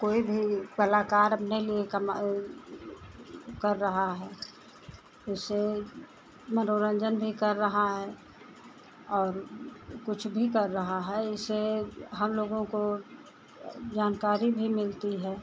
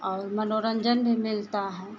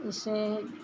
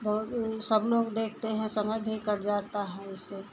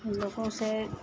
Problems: constant background noise